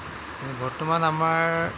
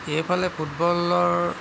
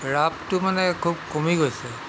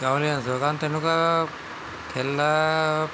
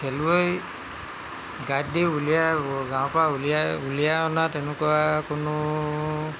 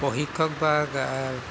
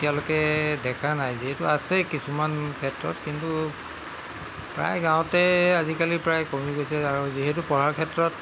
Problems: constant background noise